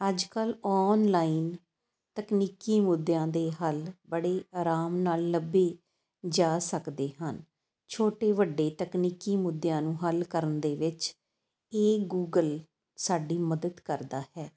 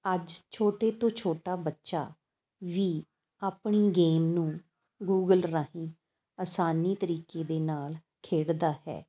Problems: constant background noise